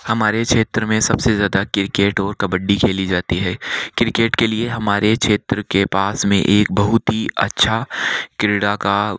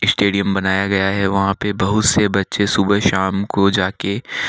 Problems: none marked